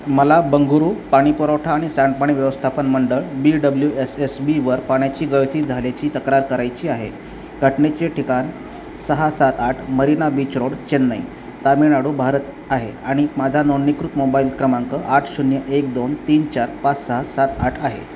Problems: none marked